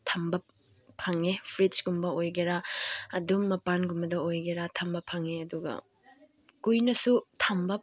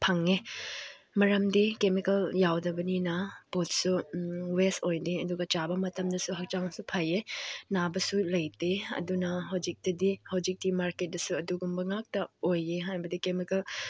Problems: none marked